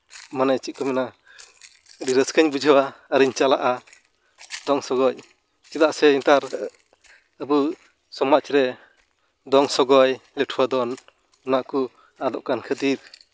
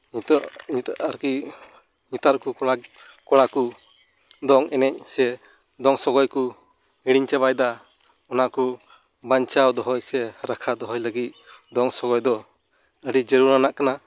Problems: background sounds at intervals